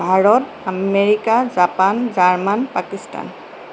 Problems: constant background noise